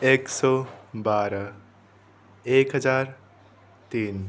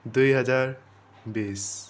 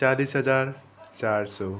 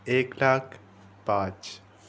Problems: constant background noise